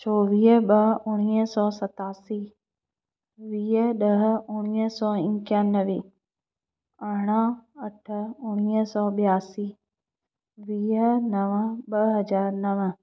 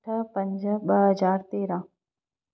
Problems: none marked